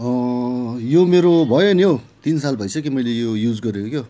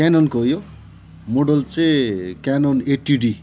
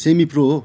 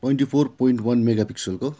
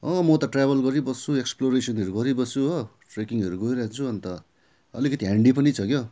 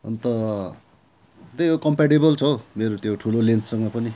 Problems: background sounds at intervals